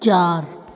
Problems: constant background noise, echo